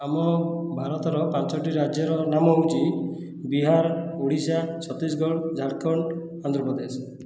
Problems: none marked